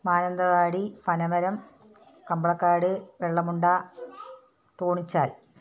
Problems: none marked